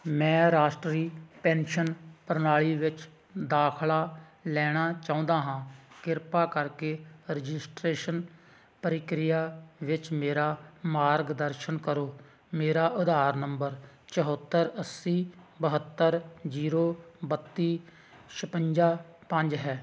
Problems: none marked